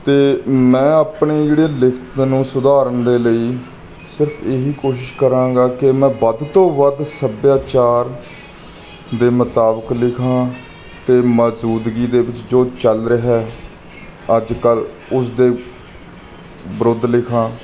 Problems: background sounds at intervals